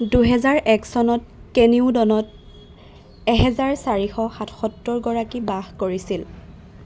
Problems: constant background noise